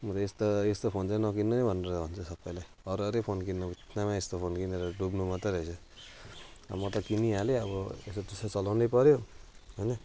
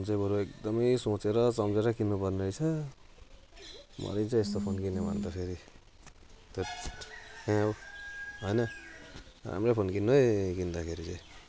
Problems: constant background noise